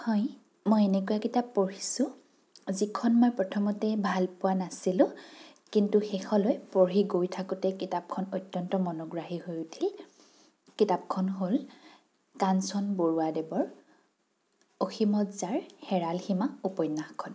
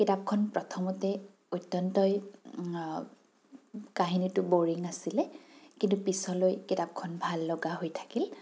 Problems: none marked